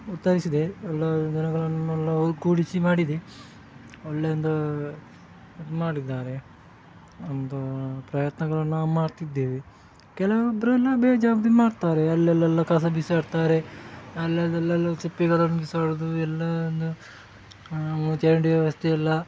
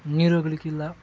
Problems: background sounds at intervals